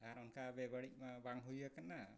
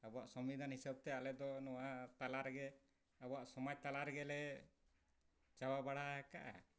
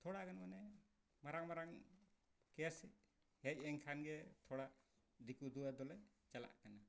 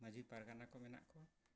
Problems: background sounds at intervals, low volume